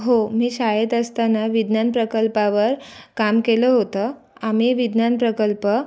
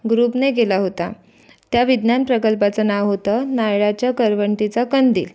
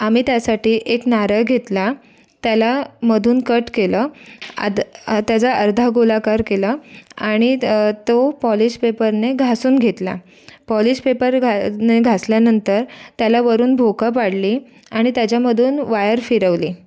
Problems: background sounds at intervals, continuous background conversations